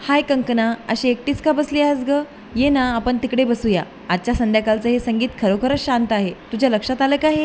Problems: constant background noise, background conversations at intervals